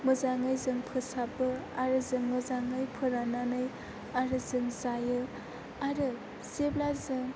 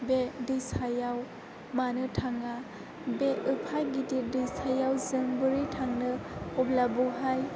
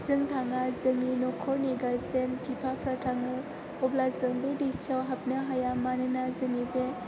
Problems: background conversations at intervals